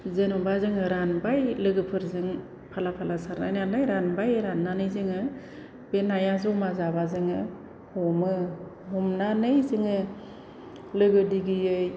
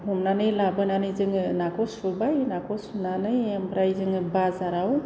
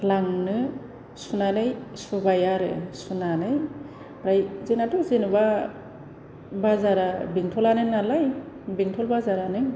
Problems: low volume